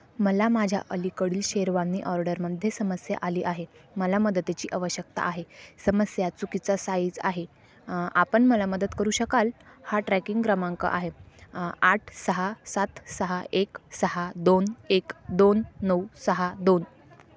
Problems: none marked